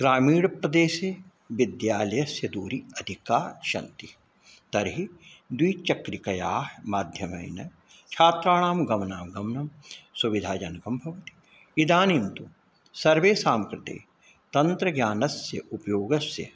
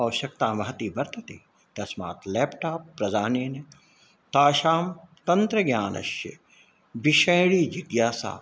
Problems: none marked